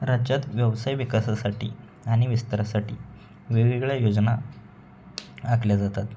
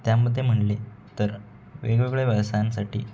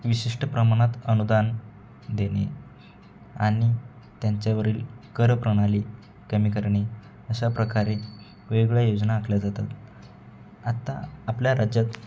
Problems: background sounds at intervals